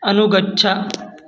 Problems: background sounds at intervals